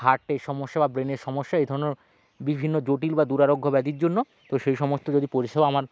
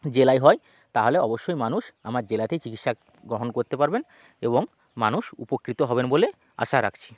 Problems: none marked